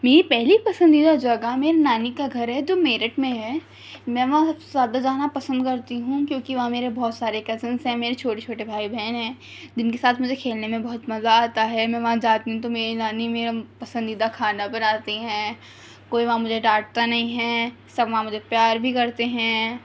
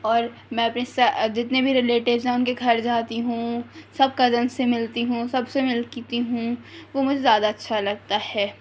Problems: none marked